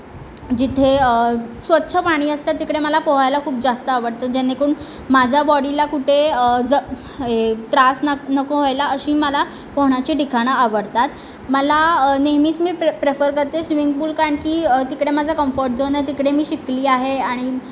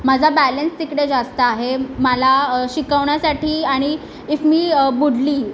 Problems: constant background noise